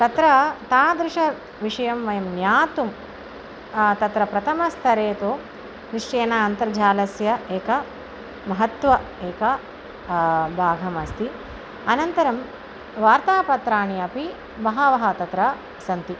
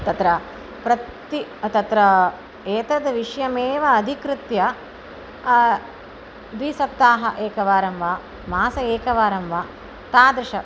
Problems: constant background noise